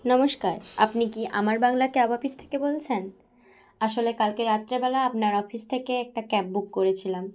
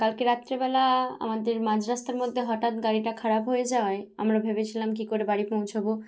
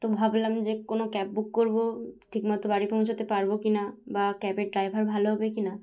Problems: background sounds at intervals